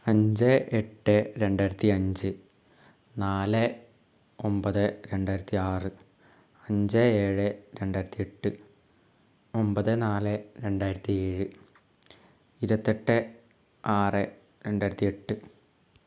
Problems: low volume